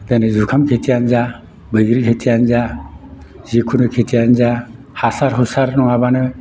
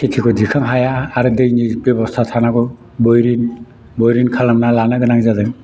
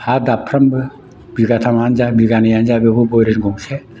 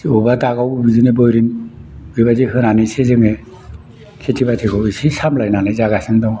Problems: background sounds at intervals